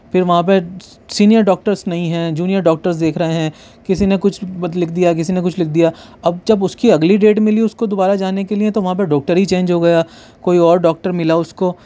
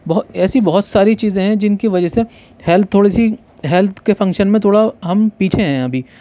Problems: background sounds at intervals